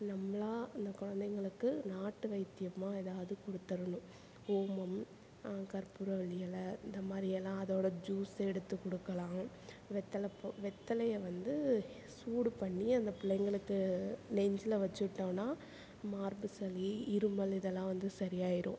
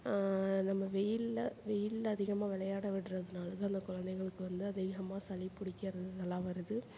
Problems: none marked